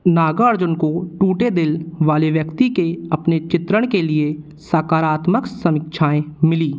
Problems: none marked